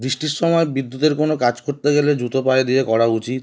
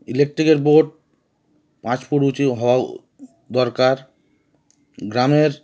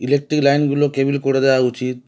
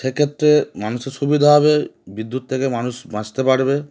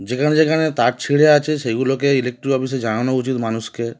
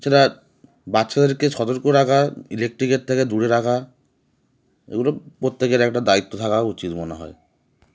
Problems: constant background noise